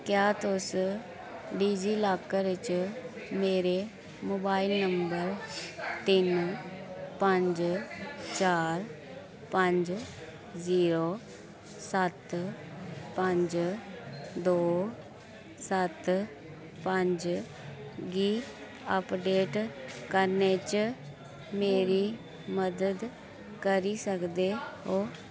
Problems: constant background noise